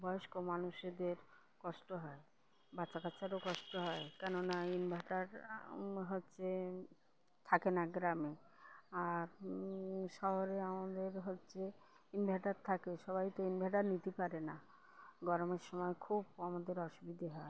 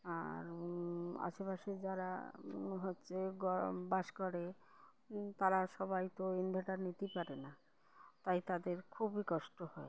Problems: none marked